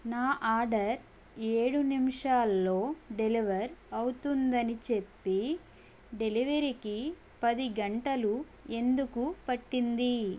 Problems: none marked